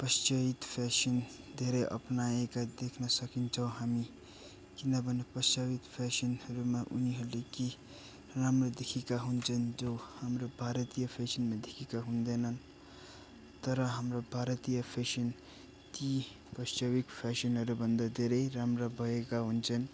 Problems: continuous background conversations, low volume